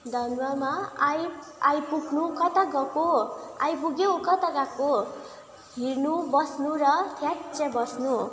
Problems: none marked